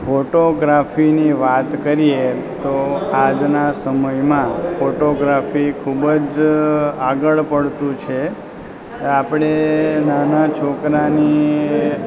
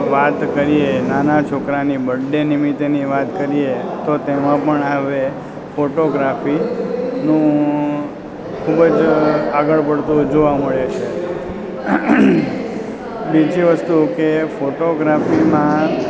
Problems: constant background noise